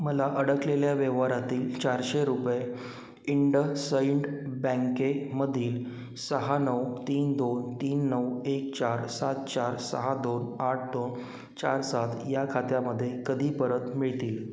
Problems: constant background noise